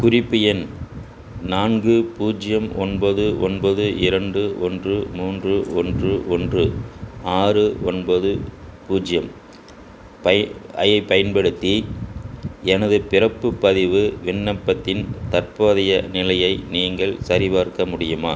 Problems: constant background noise